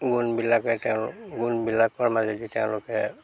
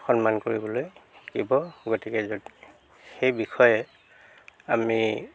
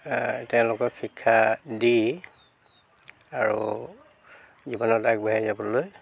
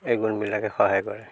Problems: none marked